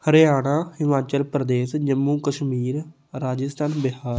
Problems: none marked